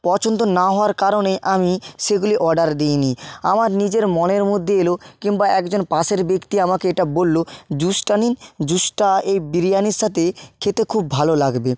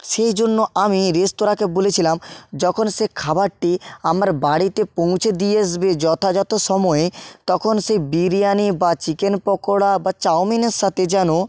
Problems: none marked